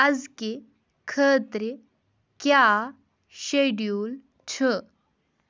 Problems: background sounds at intervals